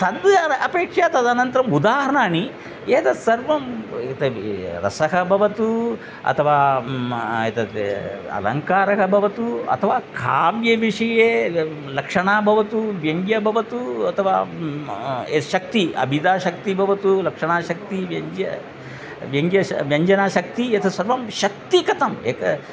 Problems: none marked